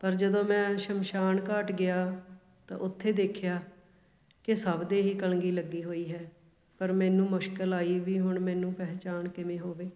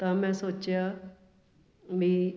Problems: background conversations at intervals